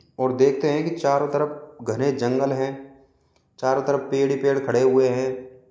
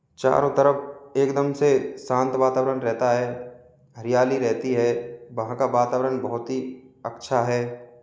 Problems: background sounds at intervals